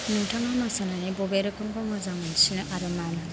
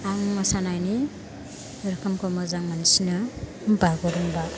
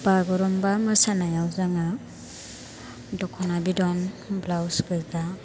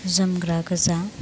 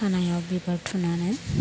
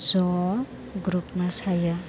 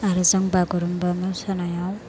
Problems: constant background noise